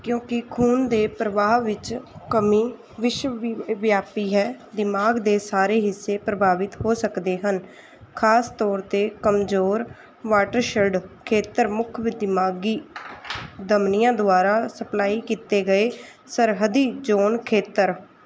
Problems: none marked